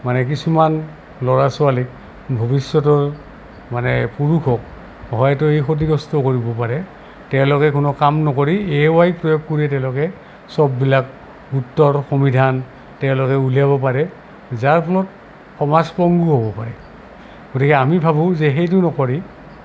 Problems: constant background noise